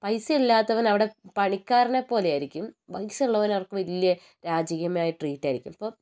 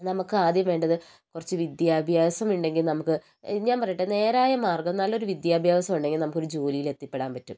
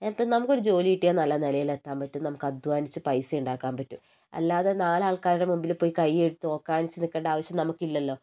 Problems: none marked